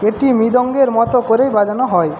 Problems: constant background noise